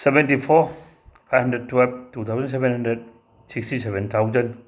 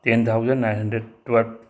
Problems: background sounds at intervals